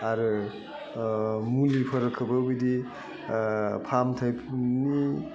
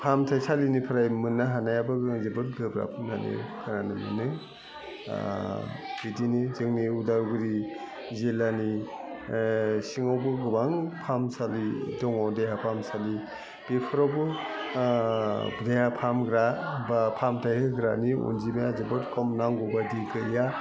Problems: constant background noise, continuous background conversations, low volume